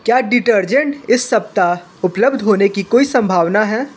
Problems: constant background noise